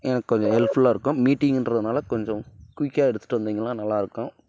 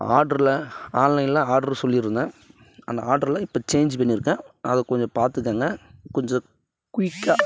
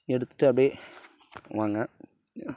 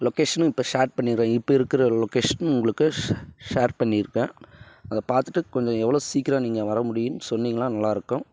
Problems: background sounds at intervals